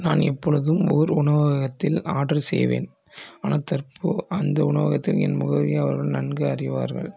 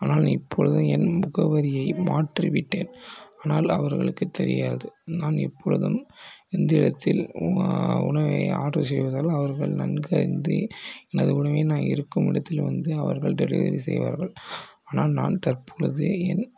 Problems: low volume